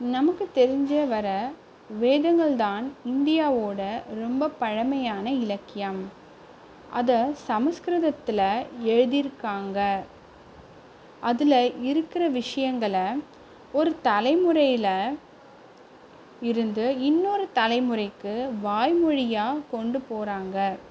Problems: constant background noise